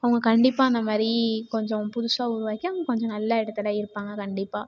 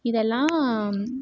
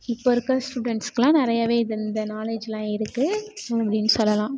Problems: background sounds at intervals